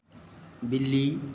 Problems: constant background noise